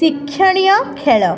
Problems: constant background noise